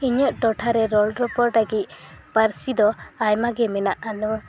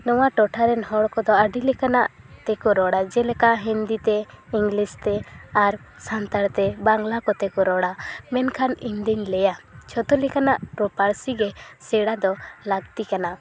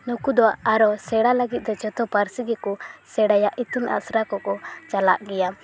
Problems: constant background noise, continuous background conversations